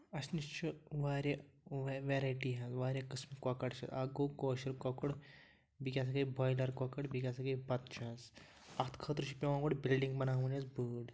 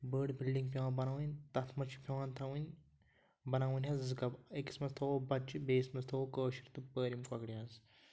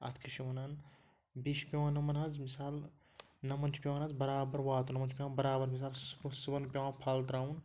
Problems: background sounds at intervals